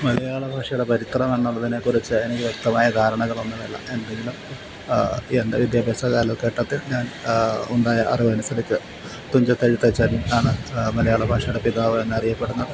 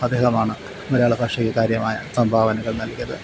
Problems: constant background noise